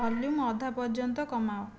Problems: background sounds at intervals